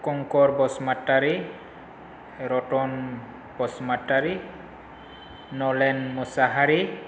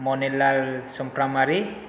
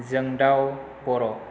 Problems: constant background noise